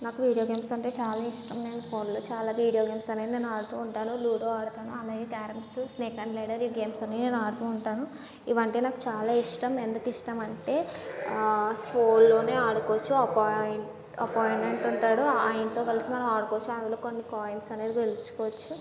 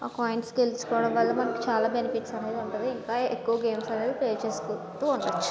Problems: background sounds at intervals, low volume